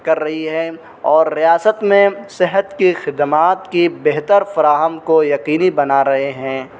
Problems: constant background noise